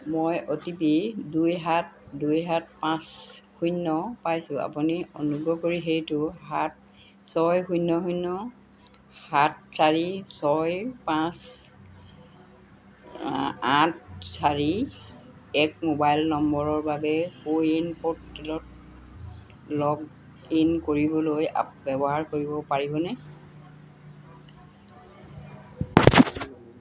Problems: background sounds at intervals